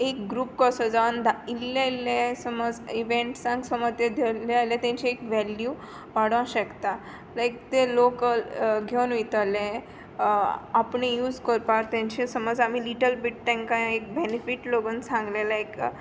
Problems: constant background noise